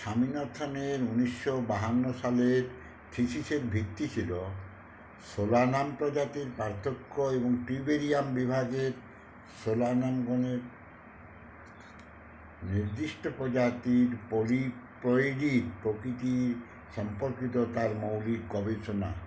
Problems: none marked